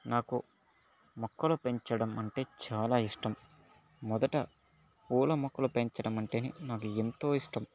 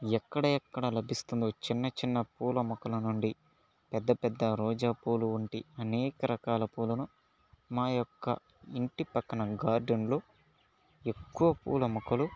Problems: background sounds at intervals, low volume